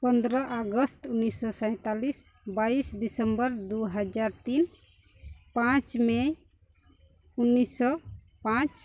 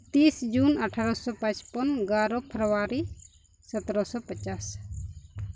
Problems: none marked